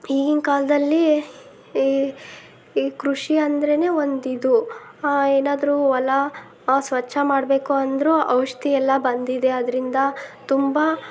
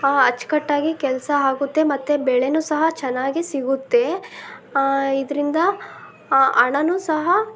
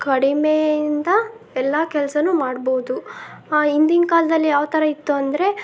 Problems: none marked